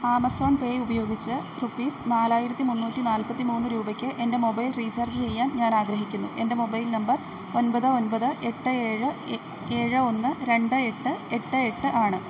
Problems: none marked